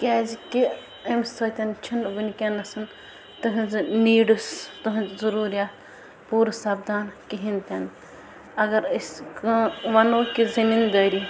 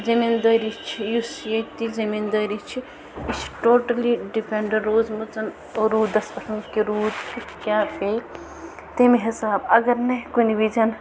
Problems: constant background noise